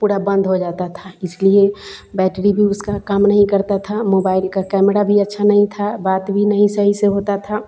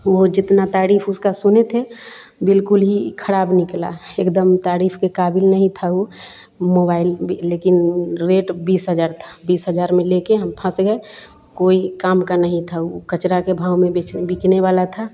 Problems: constant background noise